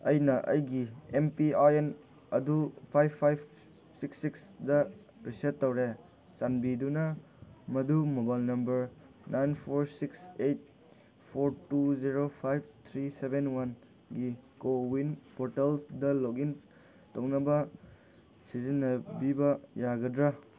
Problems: background sounds at intervals